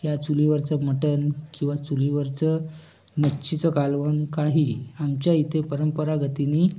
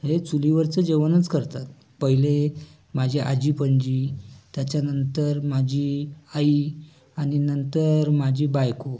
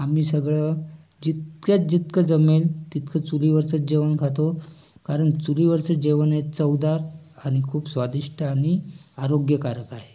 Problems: constant background noise, background conversations at intervals